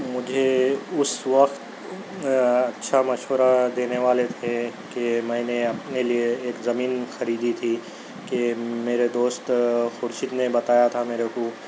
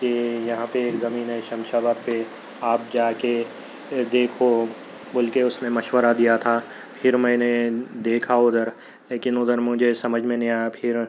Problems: background sounds at intervals